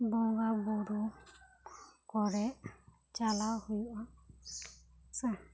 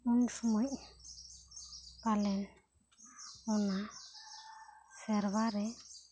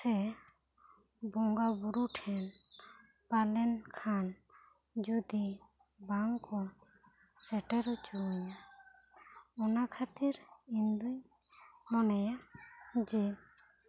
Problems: low volume